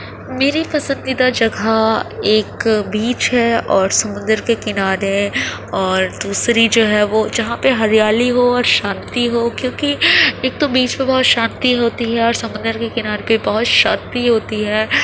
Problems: constant background noise